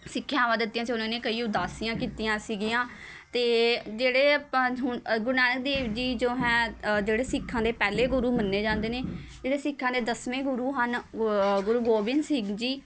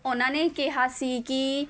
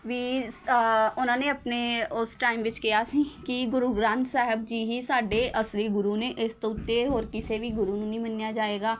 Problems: constant background noise, background conversations at intervals